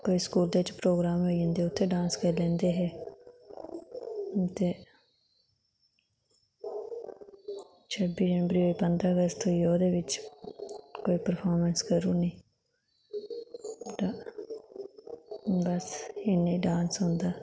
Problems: none marked